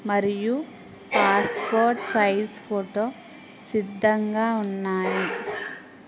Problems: constant background noise